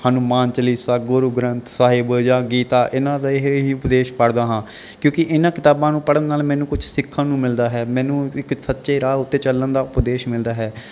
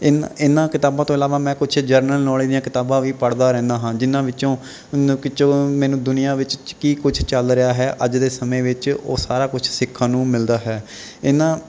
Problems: none marked